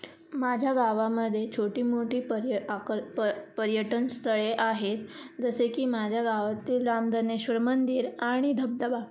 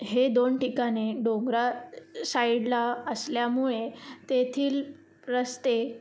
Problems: constant background noise